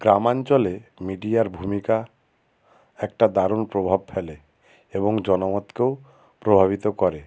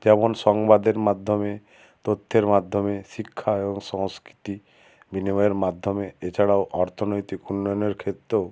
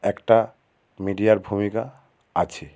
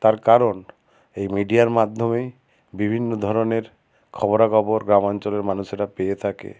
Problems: constant background noise